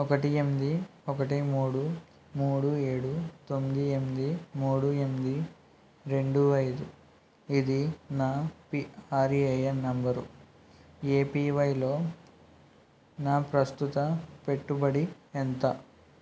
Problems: constant background noise